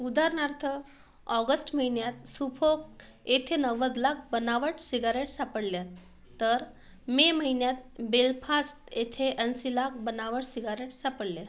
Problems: background sounds at intervals